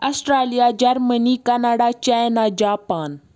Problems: none marked